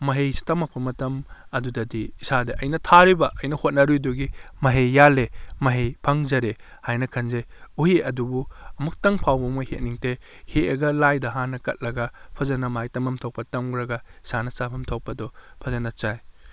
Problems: none marked